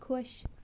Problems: none marked